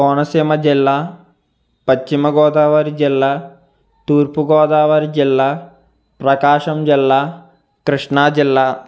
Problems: background sounds at intervals